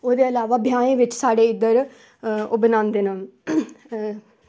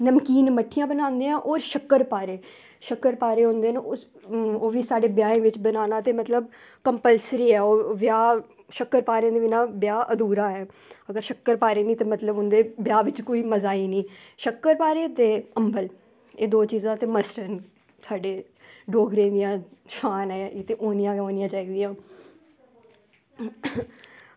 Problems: none marked